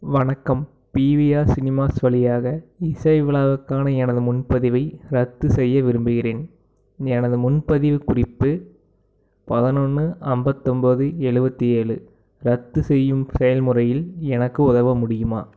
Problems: background sounds at intervals